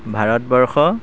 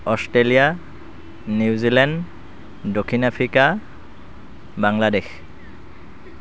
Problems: background sounds at intervals